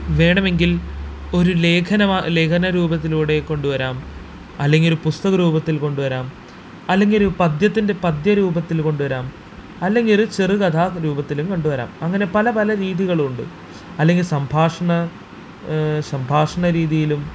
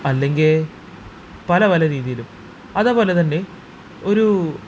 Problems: constant background noise